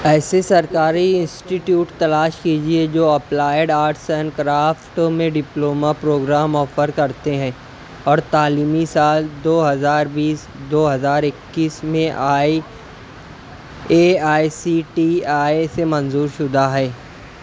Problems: constant background noise